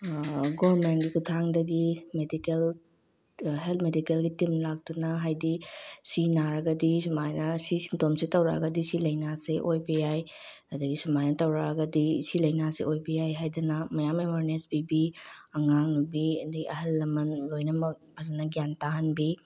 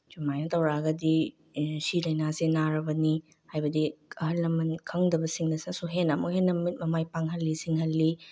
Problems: low volume